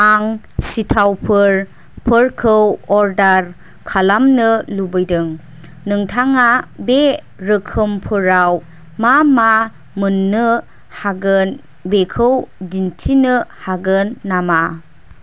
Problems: none marked